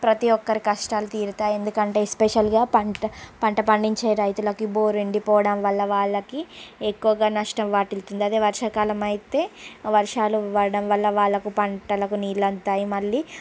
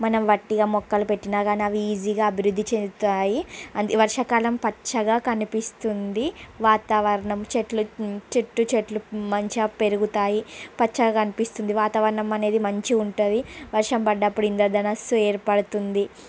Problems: constant background noise